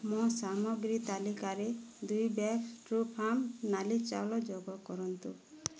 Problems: low volume